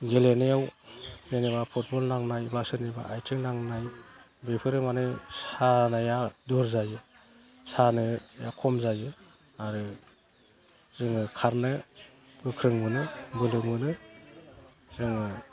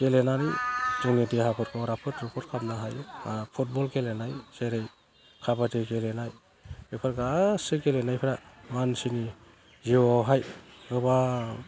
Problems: low volume